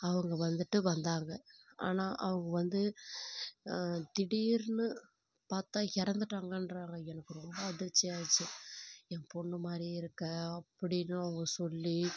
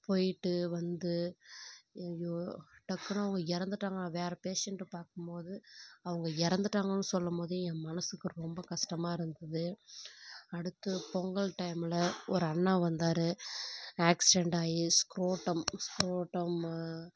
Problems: background sounds at intervals, low volume